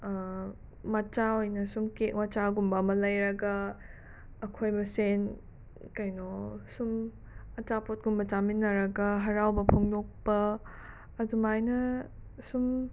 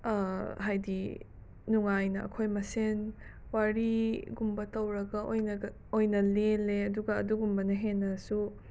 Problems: background sounds at intervals